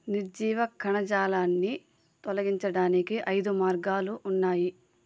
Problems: constant background noise